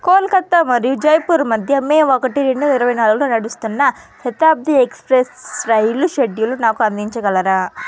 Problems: constant background noise